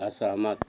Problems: none marked